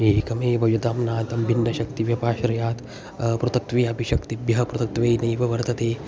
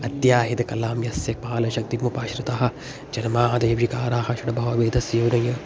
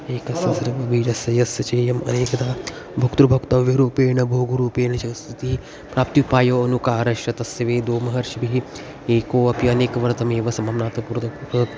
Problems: constant background noise